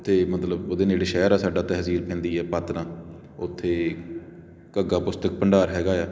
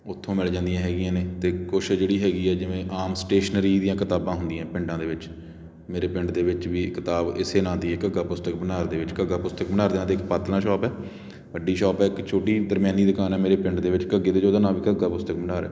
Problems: constant background noise